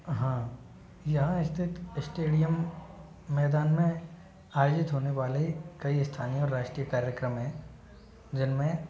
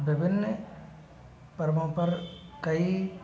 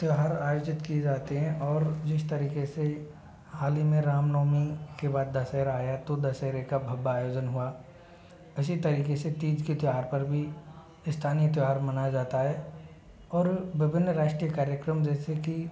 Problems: low volume